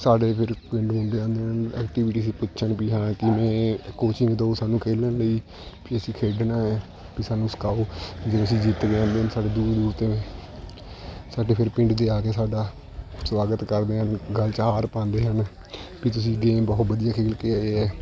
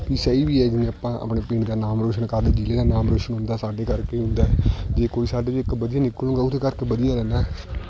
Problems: constant background noise, continuous background conversations